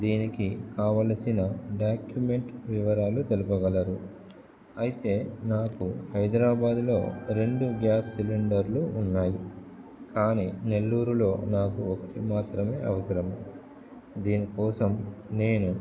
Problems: background sounds at intervals